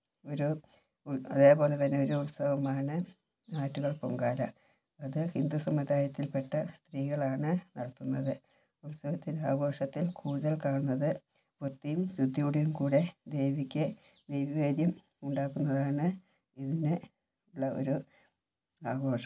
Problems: low volume